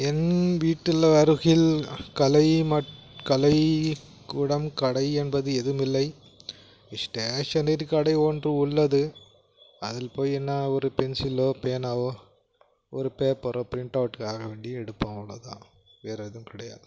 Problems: background sounds at intervals